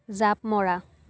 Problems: none marked